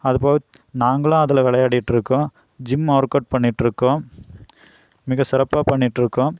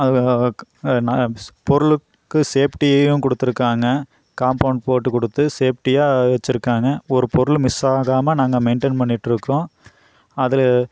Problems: none marked